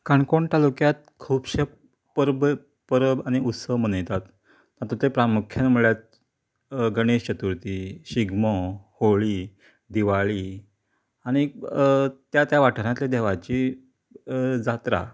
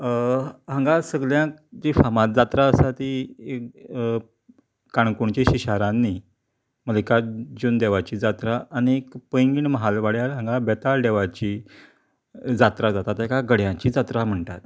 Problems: none marked